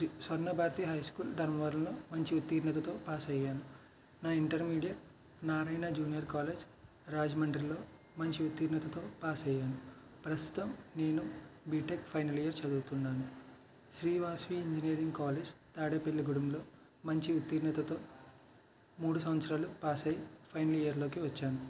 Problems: none marked